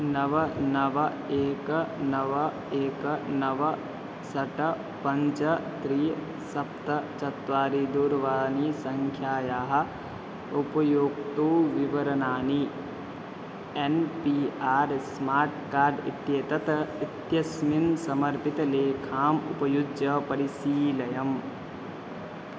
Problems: constant background noise